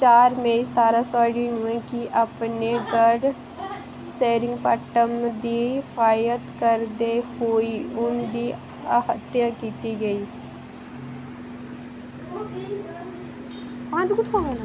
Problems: none marked